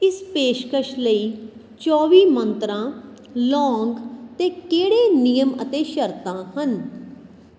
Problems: none marked